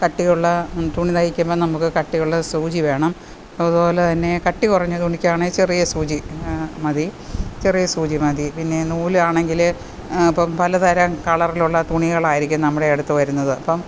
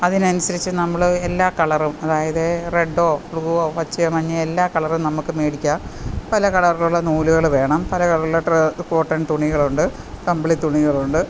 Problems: constant background noise